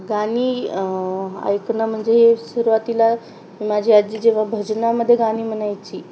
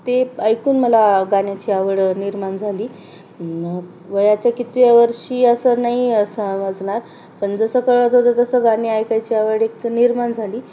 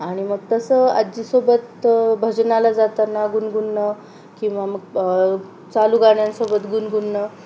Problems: none marked